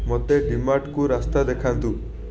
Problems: continuous background conversations